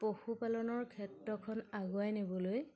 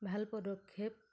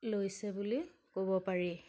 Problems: none marked